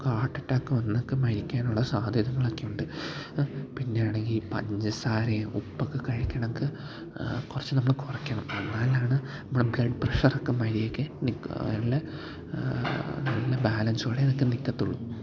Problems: background sounds at intervals, low volume